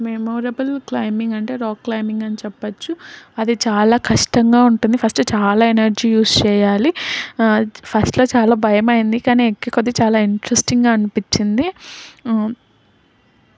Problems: background sounds at intervals